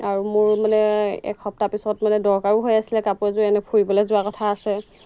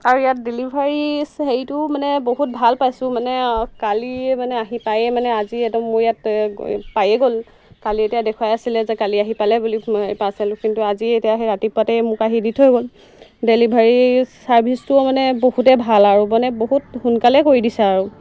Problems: constant background noise